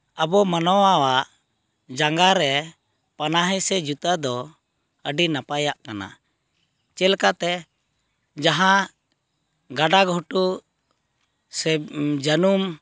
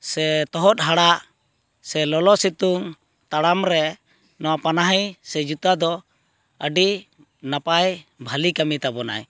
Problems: none marked